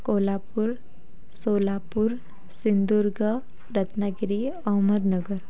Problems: none marked